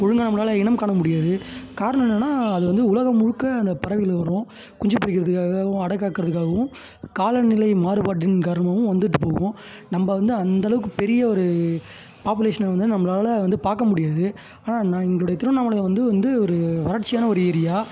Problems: constant background noise